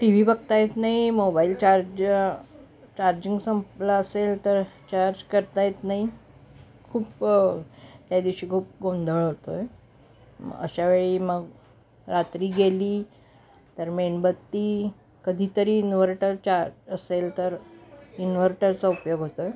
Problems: background sounds at intervals, background conversations at intervals